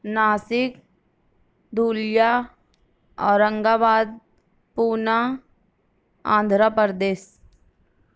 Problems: none marked